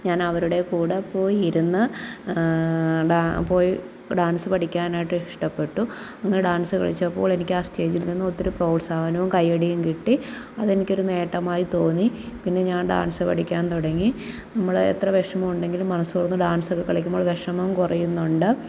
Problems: none marked